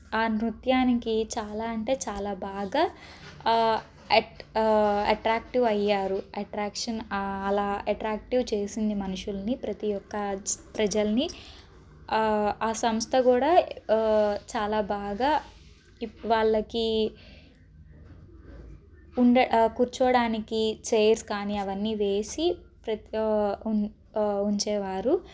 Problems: background sounds at intervals